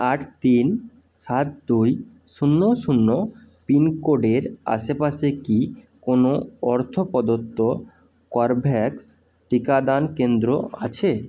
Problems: constant background noise